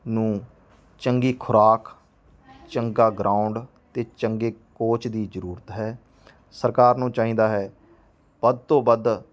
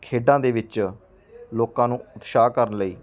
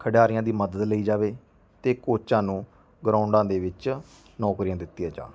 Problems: background sounds at intervals, background conversations at intervals